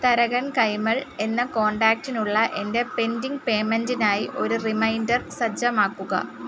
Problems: constant background noise